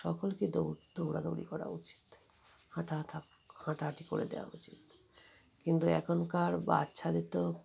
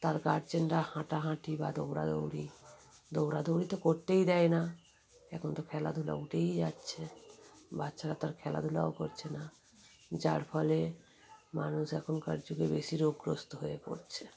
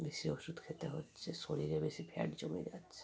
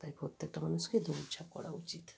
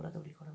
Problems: constant background noise, continuous background conversations